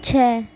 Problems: constant background noise